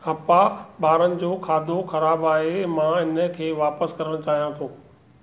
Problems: none marked